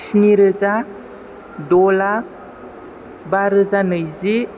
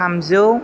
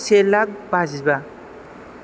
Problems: background conversations at intervals